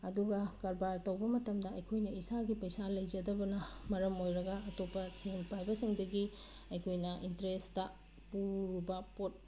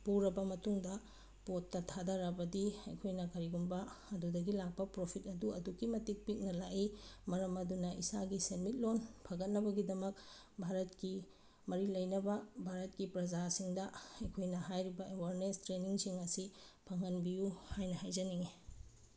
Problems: none marked